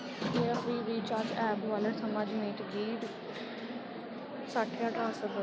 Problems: background sounds at intervals